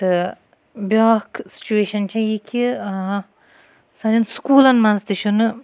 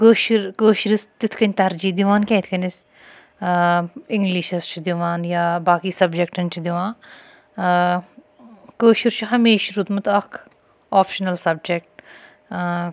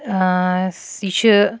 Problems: none marked